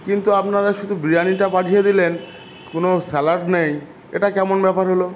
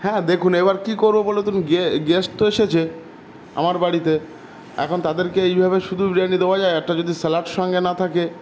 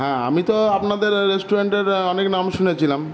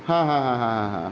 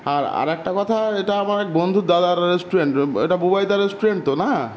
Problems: none marked